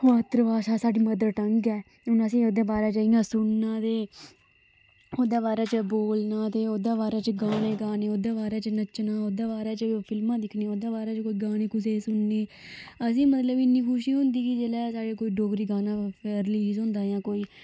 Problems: constant background noise